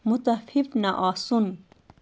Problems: constant background noise